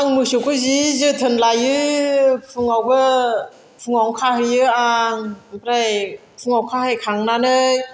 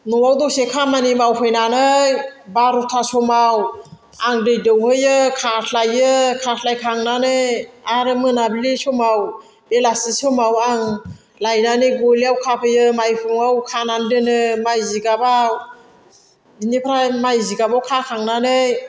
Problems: constant background noise